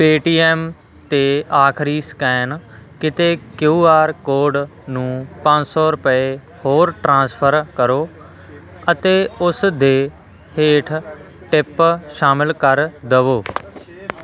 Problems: continuous background conversations